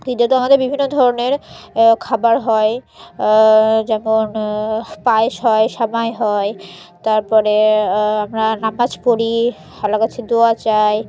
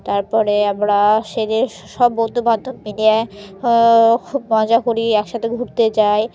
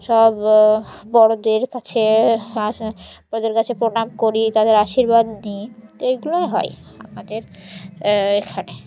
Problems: constant background noise